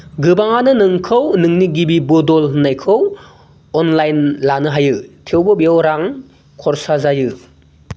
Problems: low volume